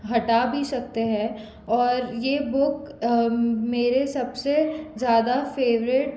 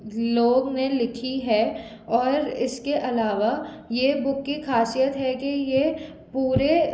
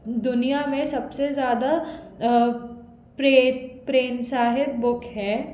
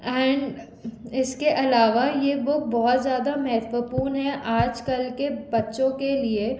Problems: background sounds at intervals